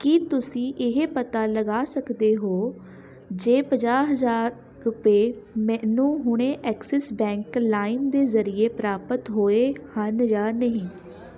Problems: continuous background conversations